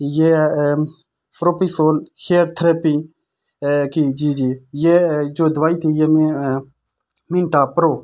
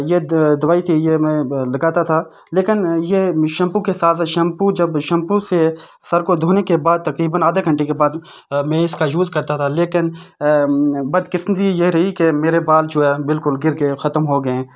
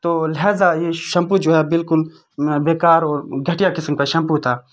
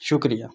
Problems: constant background noise